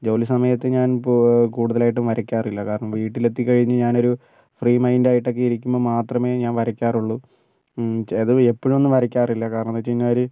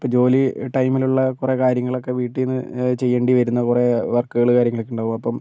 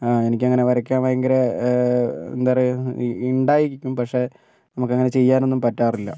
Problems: none marked